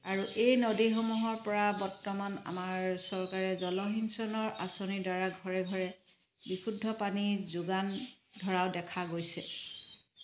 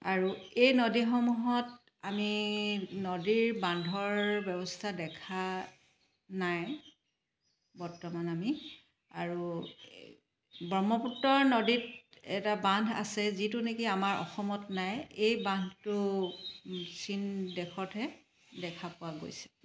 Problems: constant background noise